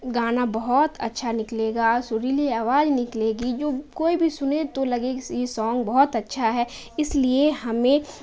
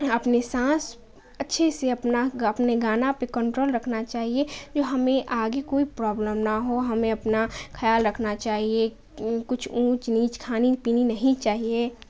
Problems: constant background noise